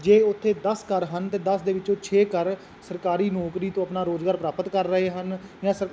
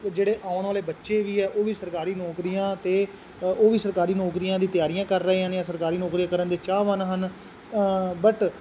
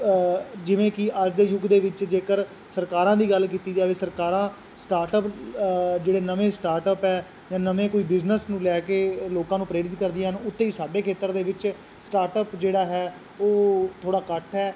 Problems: constant background noise